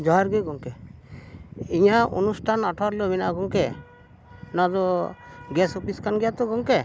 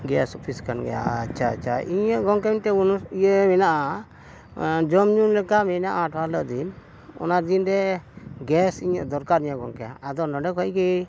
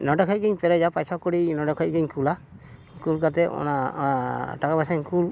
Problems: none marked